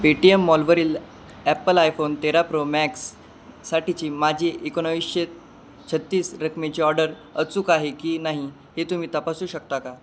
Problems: constant background noise